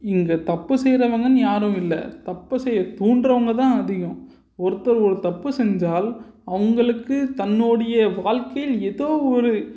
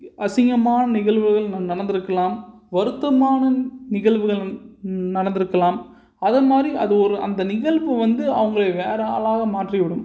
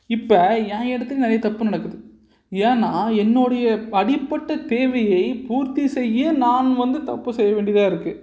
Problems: none marked